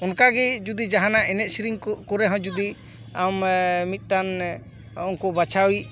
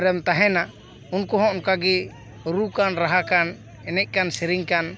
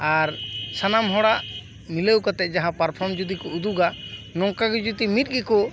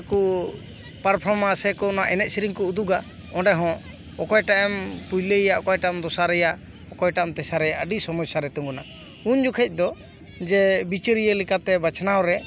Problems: background sounds at intervals, background conversations at intervals